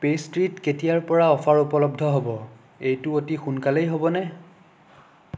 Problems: none marked